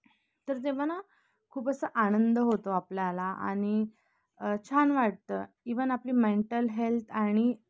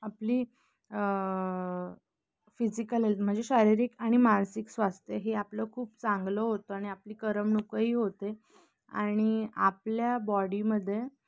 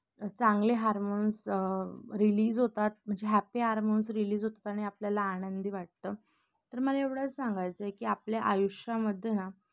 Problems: none marked